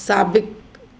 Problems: constant background noise